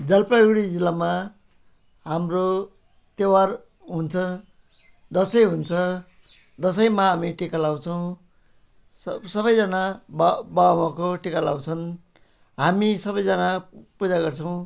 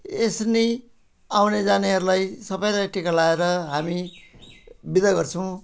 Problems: background sounds at intervals